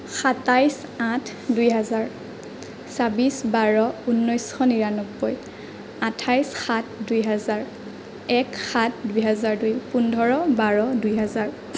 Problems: none marked